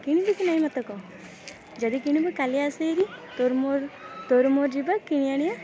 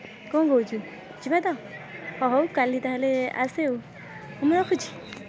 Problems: constant background noise